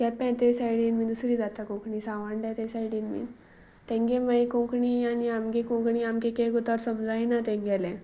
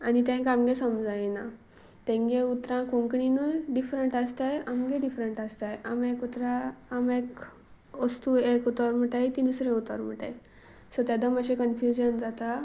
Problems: constant background noise